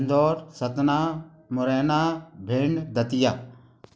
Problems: background sounds at intervals